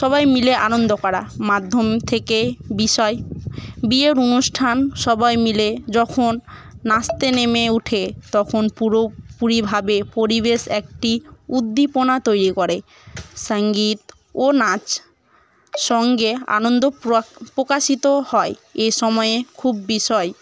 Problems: none marked